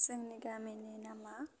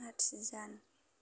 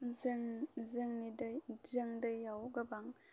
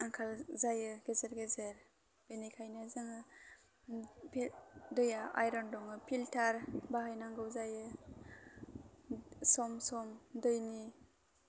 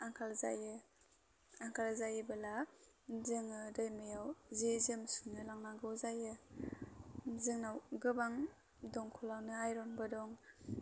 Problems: constant background noise